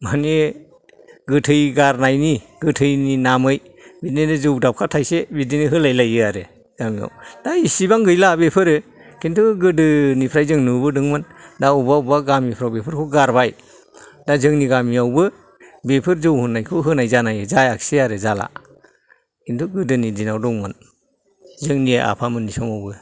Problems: background sounds at intervals, background conversations at intervals